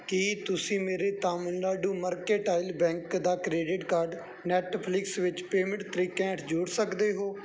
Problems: background sounds at intervals